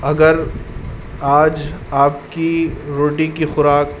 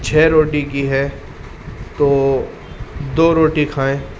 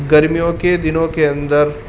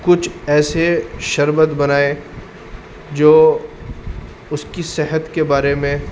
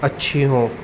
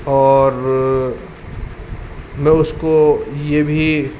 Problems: constant background noise